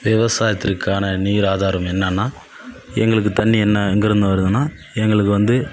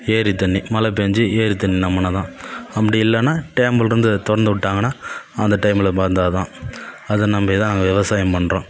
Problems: none marked